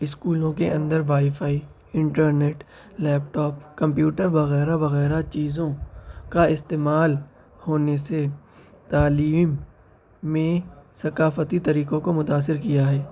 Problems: constant background noise, background conversations at intervals